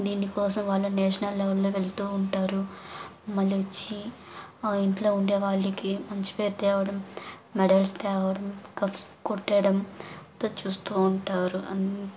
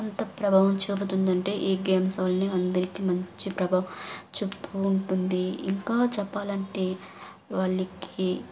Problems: background sounds at intervals